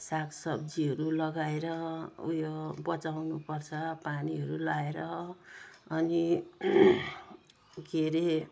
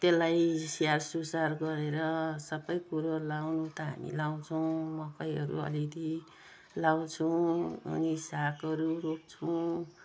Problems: none marked